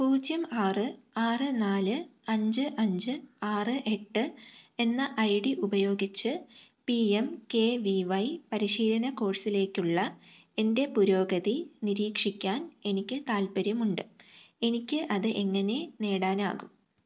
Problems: low volume